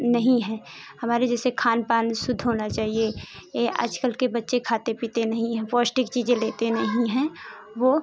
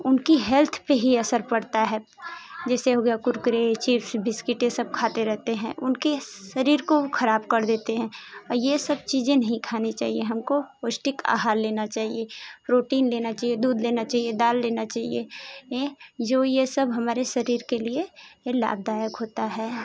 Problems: constant background noise